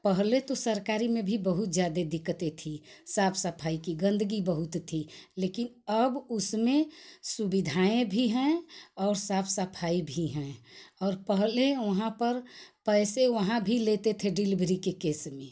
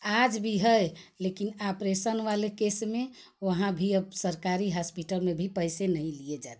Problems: constant background noise